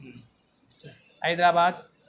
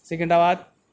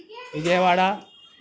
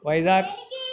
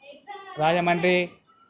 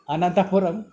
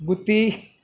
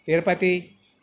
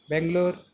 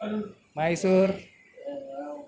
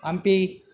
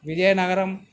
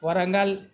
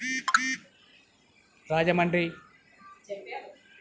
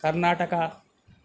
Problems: background conversations at intervals